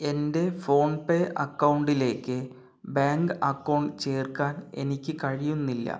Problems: none marked